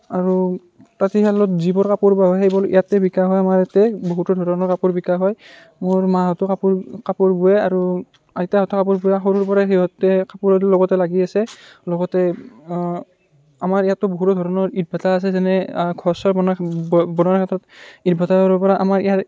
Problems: background sounds at intervals